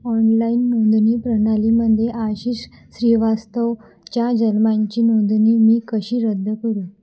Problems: constant background noise, low volume